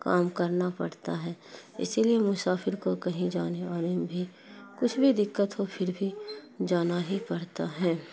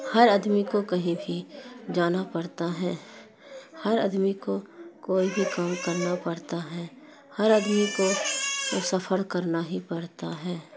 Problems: constant background noise